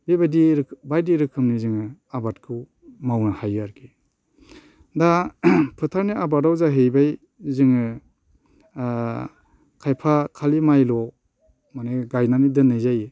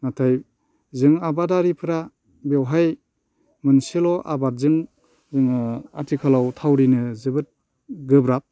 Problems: constant background noise